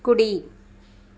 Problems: none marked